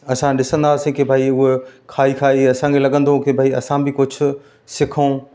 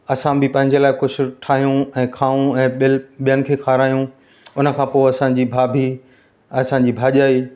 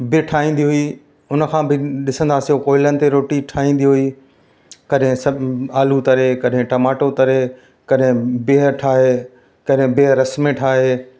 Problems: constant background noise, echo